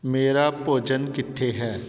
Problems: background conversations at intervals